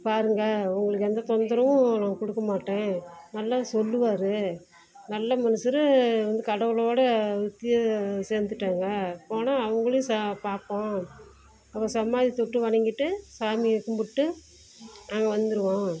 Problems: constant background noise, low volume